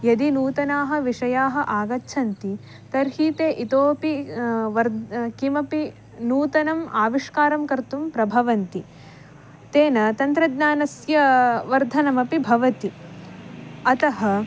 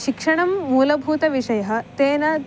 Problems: background sounds at intervals